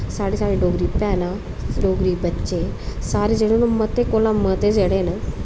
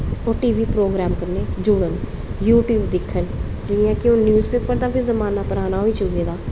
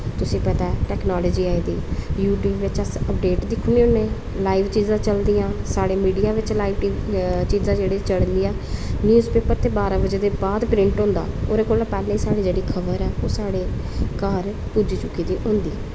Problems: constant background noise